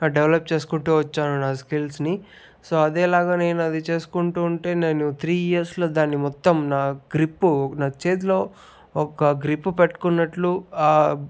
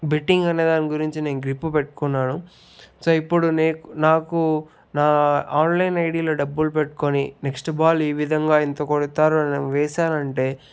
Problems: none marked